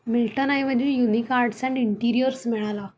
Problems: background sounds at intervals